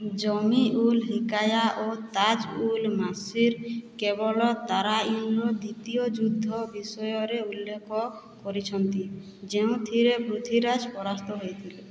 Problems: none marked